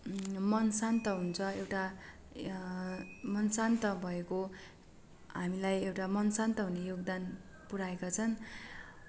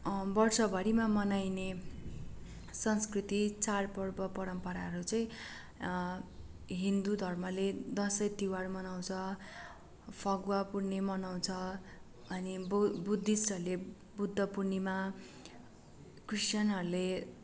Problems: none marked